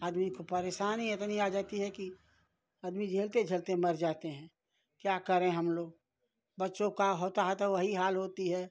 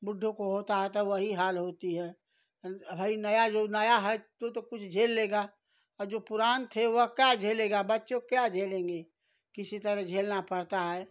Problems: background sounds at intervals